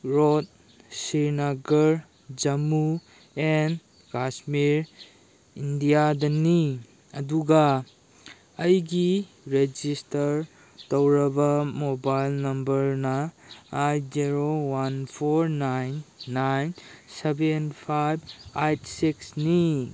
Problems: background sounds at intervals